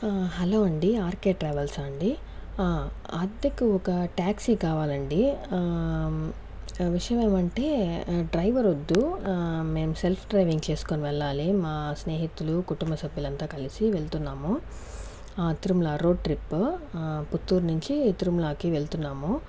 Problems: background conversations at intervals